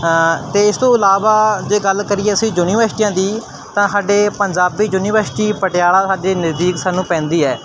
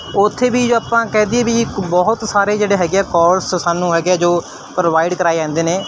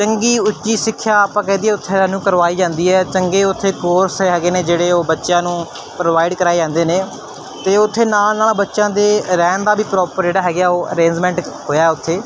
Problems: constant background noise